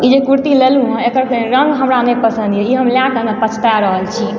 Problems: background sounds at intervals